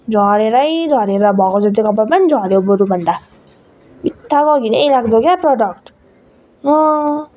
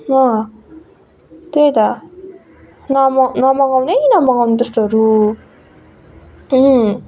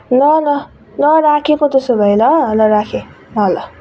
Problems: constant background noise